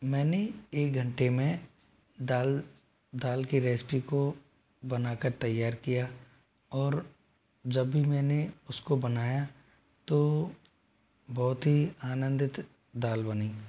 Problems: low volume